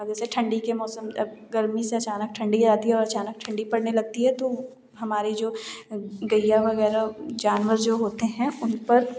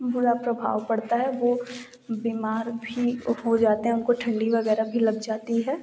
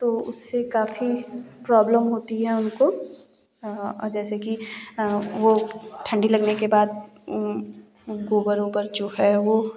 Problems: background sounds at intervals